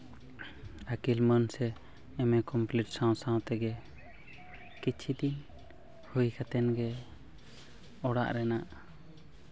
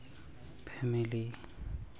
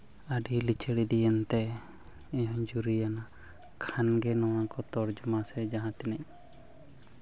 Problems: continuous background conversations